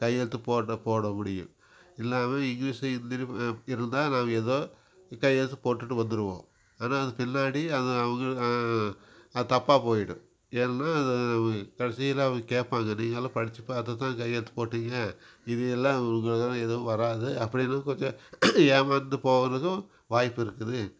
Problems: background sounds at intervals